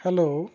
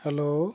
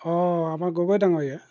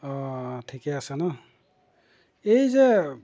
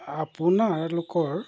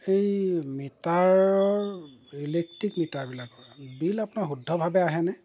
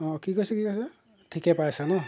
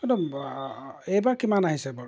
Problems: background sounds at intervals